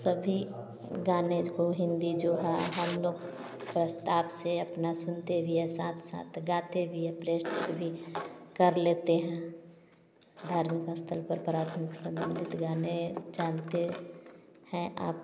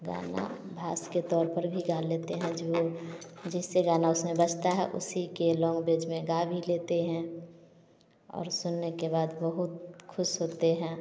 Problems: background sounds at intervals